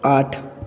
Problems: background sounds at intervals